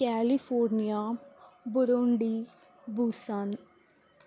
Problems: none marked